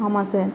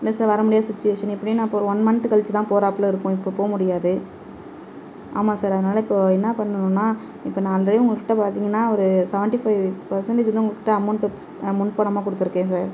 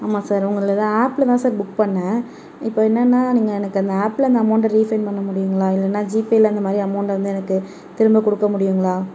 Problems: background sounds at intervals